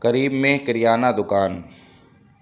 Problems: constant background noise